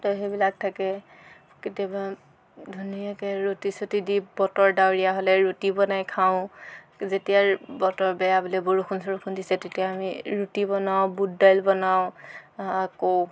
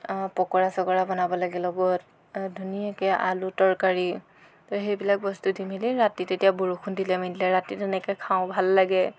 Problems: constant background noise, background conversations at intervals